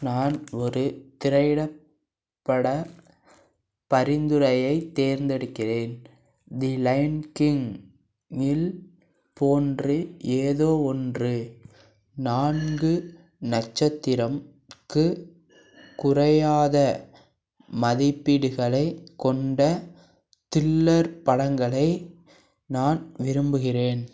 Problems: background sounds at intervals